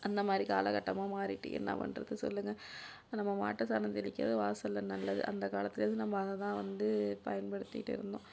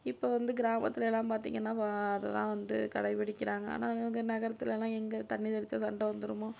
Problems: low volume